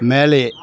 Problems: constant background noise